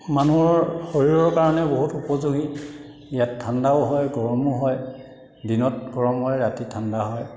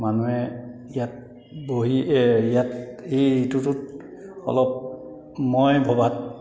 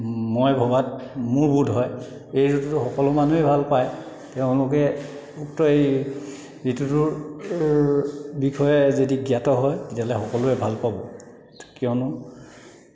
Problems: background sounds at intervals